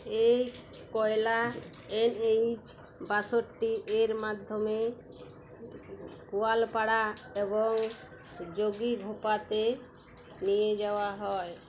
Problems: constant background noise